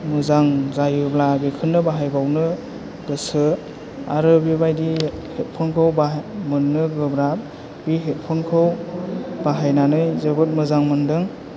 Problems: low volume